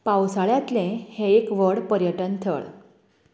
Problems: constant background noise